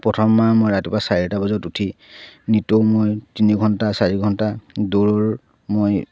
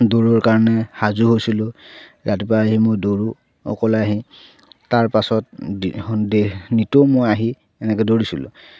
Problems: none marked